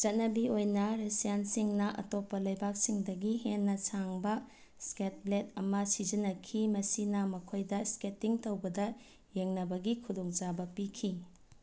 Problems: none marked